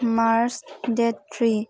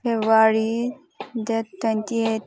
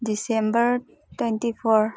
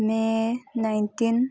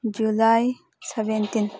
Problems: constant background noise